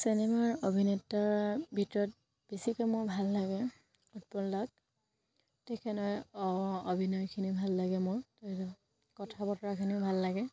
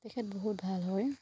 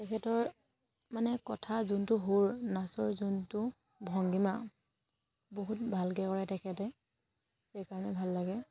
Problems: none marked